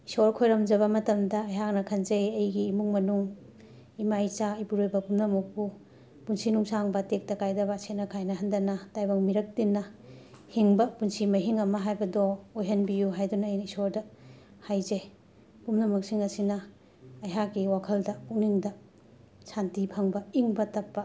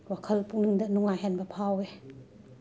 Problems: background sounds at intervals, continuous background conversations